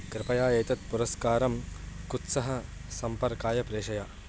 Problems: constant background noise